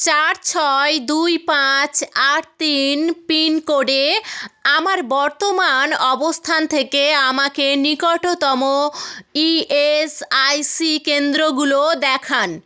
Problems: none marked